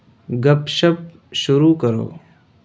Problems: none marked